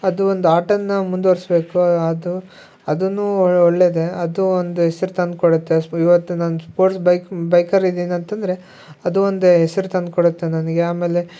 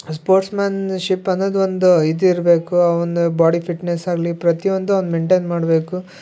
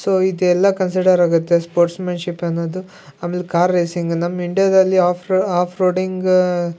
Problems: none marked